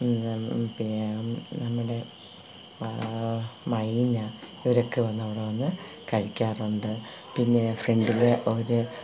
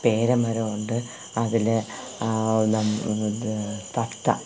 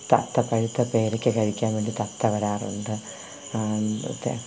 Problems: constant background noise, low volume